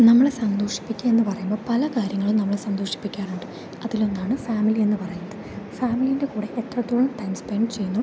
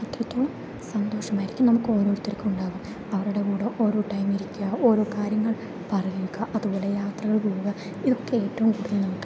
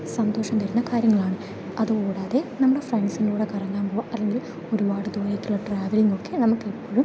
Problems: low volume